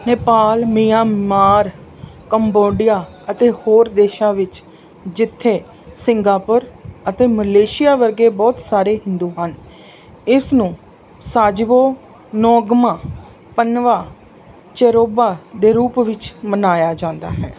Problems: none marked